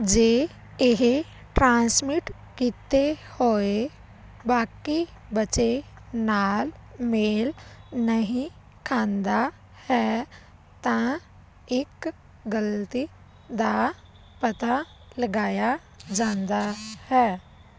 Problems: constant background noise